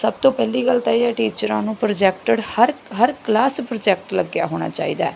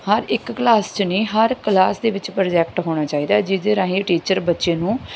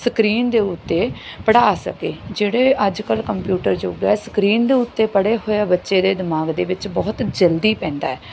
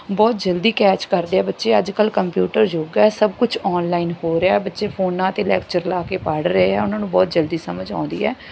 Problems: none marked